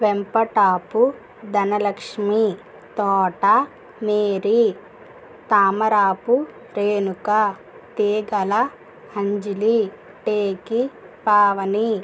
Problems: none marked